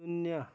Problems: none marked